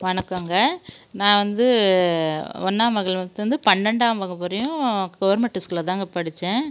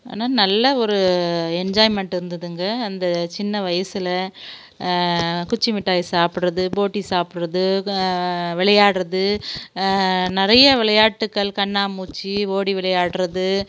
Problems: background sounds at intervals